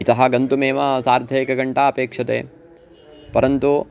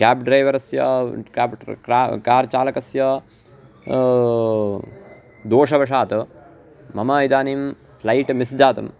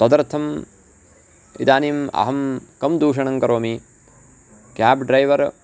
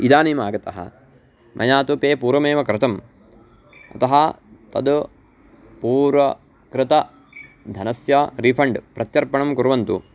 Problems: constant background noise